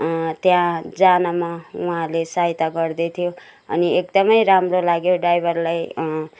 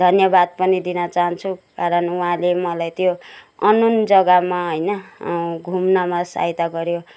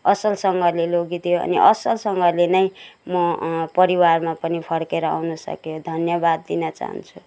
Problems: none marked